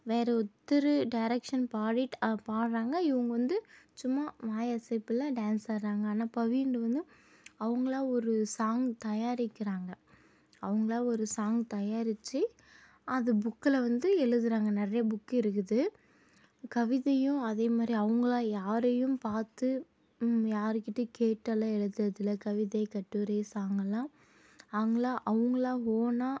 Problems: none marked